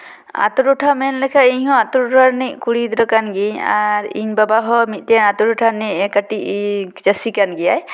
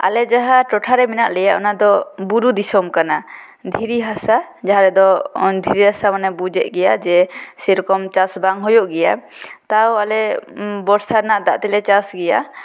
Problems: background sounds at intervals